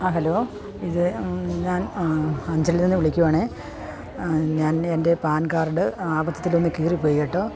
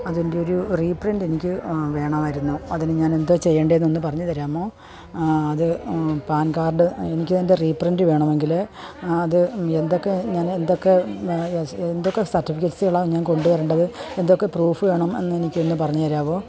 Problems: background sounds at intervals